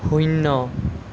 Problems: none marked